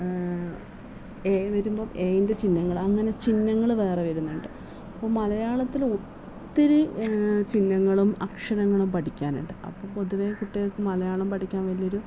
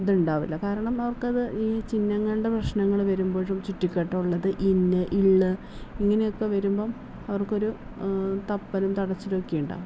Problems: none marked